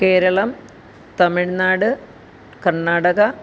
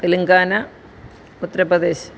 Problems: none marked